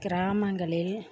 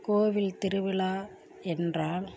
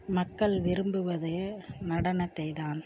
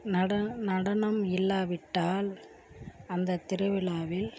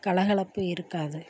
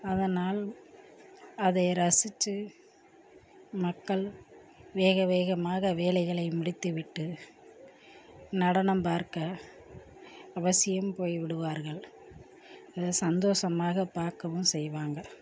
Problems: low volume